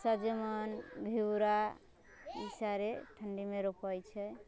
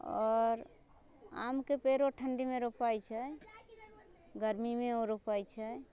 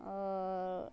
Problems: low volume